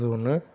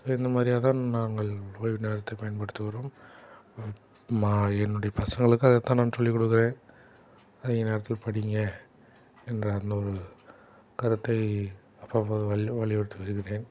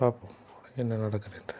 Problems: background sounds at intervals